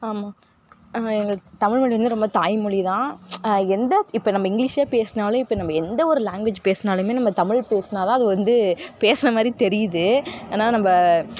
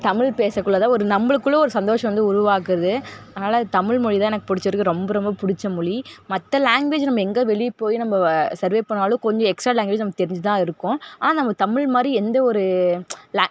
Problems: background sounds at intervals, background conversations at intervals